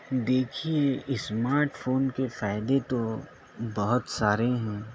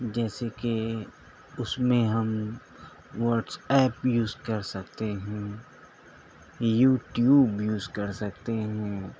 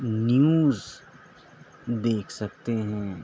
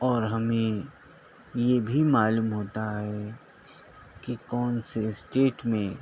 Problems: constant background noise